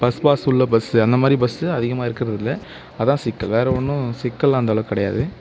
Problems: none marked